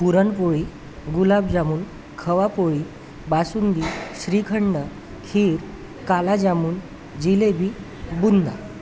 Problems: constant background noise, background conversations at intervals